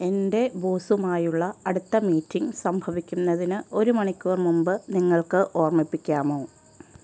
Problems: constant background noise